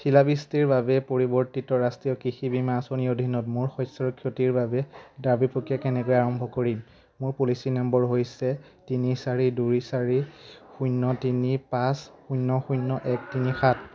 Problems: none marked